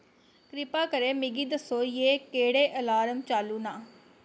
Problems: constant background noise